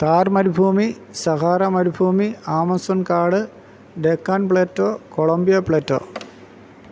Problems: none marked